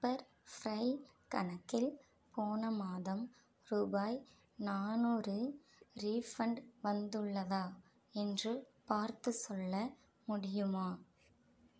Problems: none marked